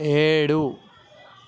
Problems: constant background noise